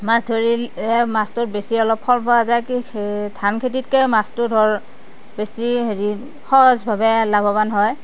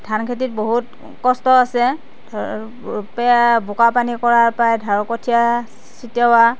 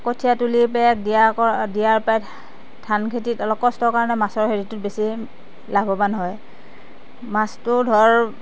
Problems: constant background noise